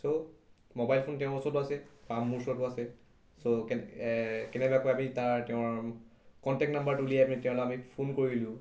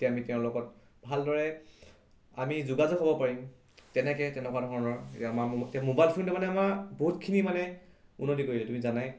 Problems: none marked